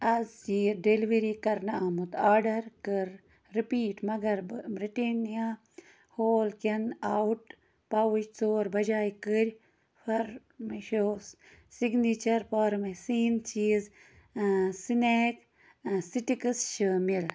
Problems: none marked